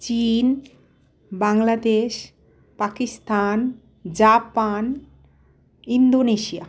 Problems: none marked